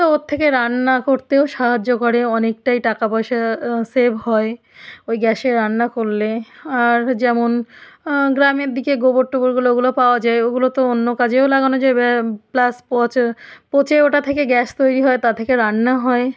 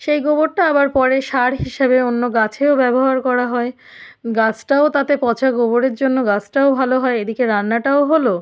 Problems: background sounds at intervals